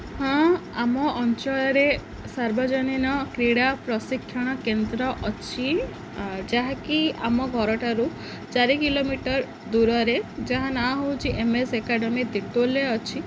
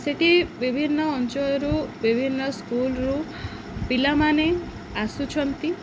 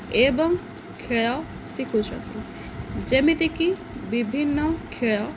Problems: none marked